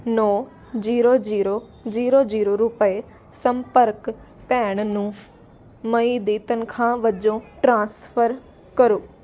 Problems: constant background noise